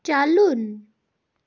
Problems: background sounds at intervals